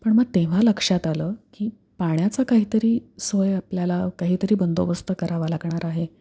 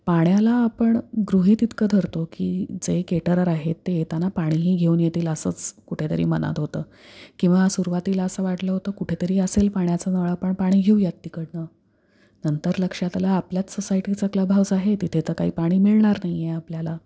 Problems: none marked